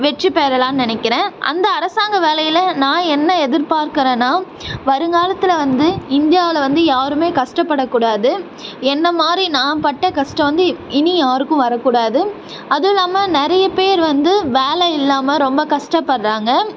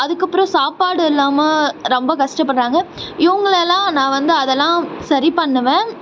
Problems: none marked